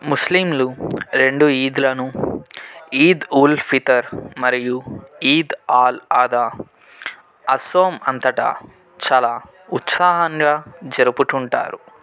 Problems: none marked